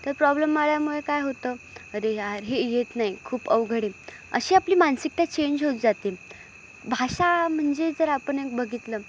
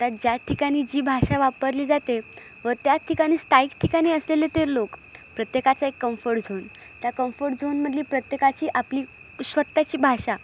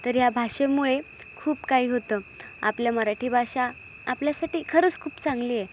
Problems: constant background noise, echo